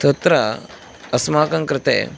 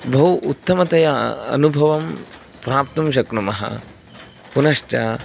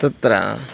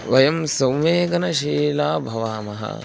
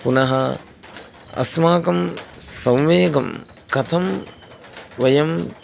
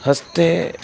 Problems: constant background noise